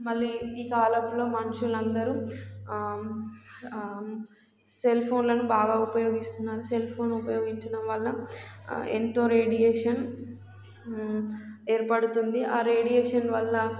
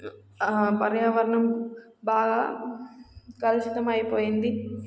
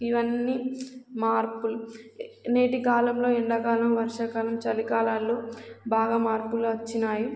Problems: constant background noise